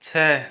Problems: background sounds at intervals